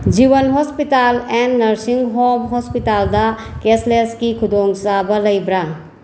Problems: constant background noise